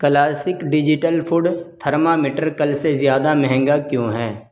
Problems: none marked